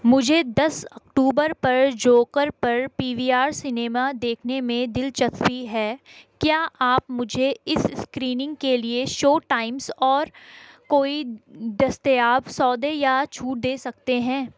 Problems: constant background noise